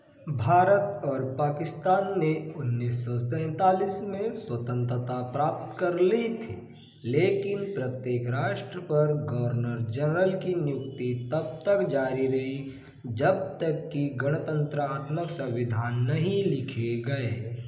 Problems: constant background noise, echo, low volume